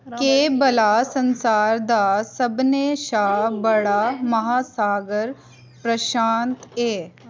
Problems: constant background noise